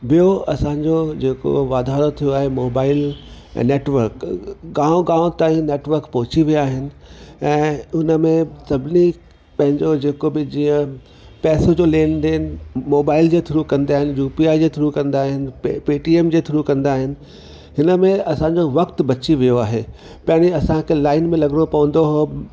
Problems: constant background noise